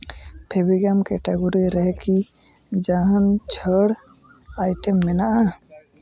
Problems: background sounds at intervals, background conversations at intervals